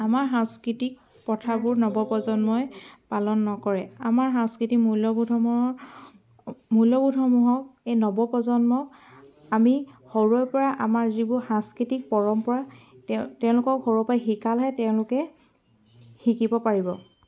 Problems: constant background noise